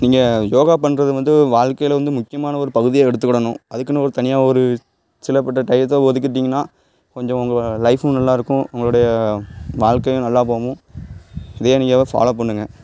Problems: none marked